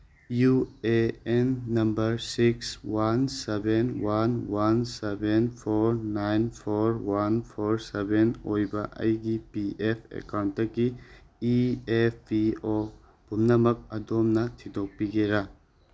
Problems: none marked